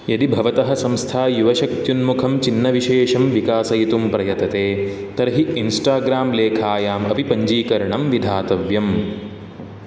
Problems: none marked